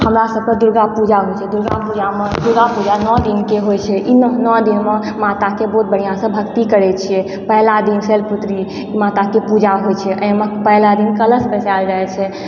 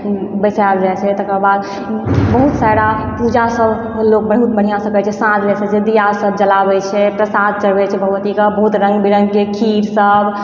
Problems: background sounds at intervals